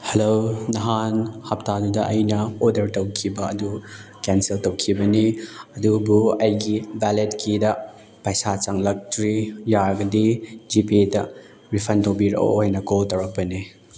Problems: background sounds at intervals